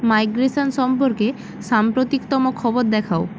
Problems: constant background noise